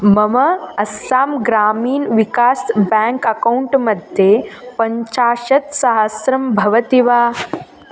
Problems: constant background noise